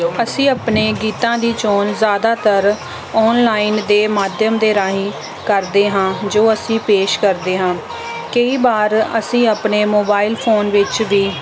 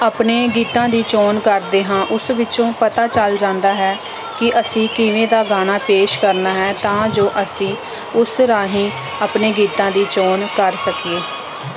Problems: background sounds at intervals